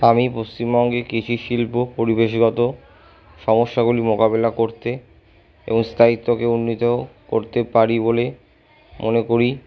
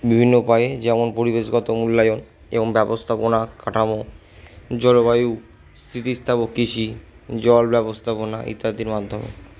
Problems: background conversations at intervals